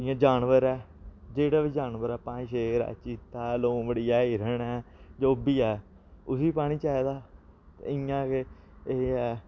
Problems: none marked